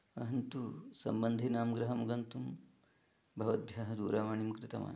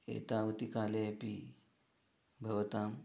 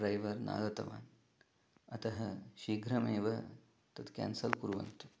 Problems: low volume